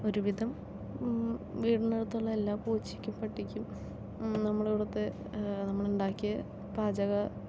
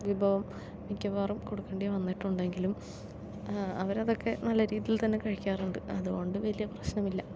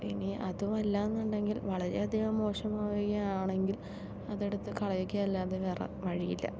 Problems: low volume